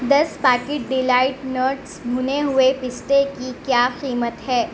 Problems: none marked